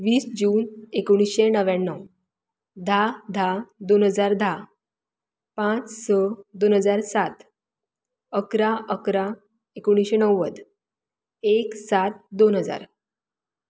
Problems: none marked